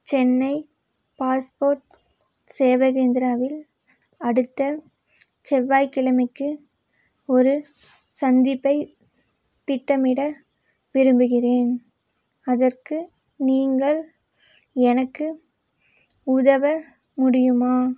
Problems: none marked